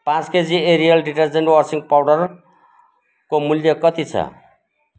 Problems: background sounds at intervals